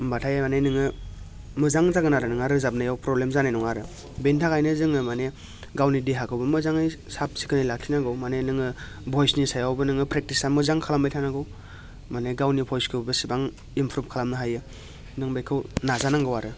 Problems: constant background noise